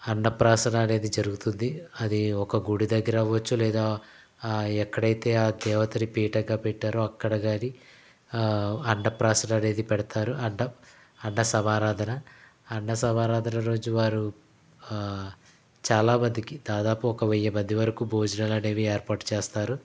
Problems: background sounds at intervals